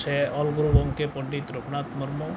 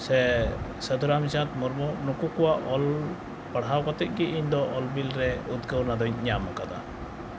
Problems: background sounds at intervals